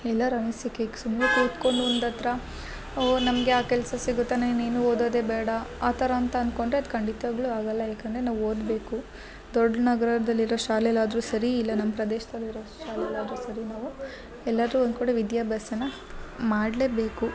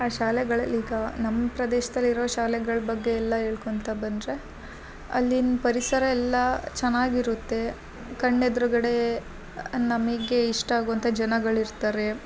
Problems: background sounds at intervals